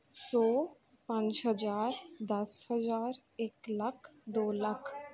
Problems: background conversations at intervals